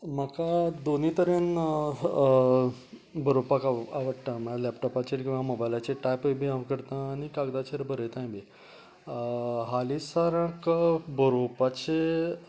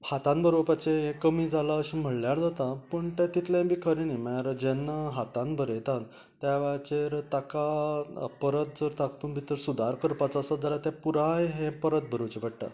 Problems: background sounds at intervals, background conversations at intervals